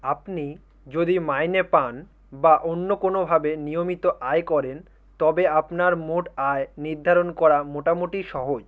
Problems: none marked